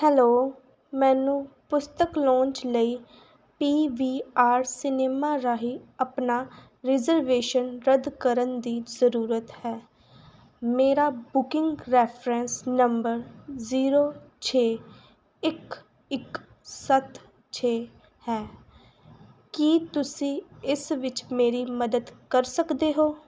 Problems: background sounds at intervals